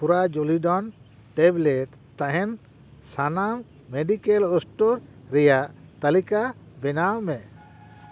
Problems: constant background noise